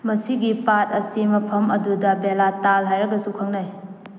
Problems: none marked